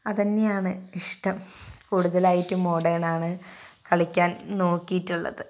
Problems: none marked